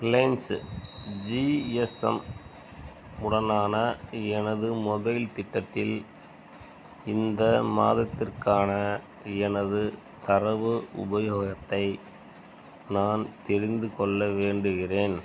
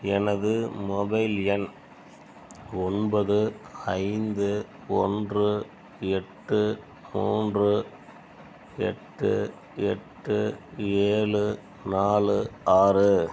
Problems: background sounds at intervals